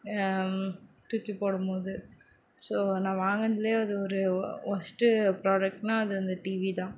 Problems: background sounds at intervals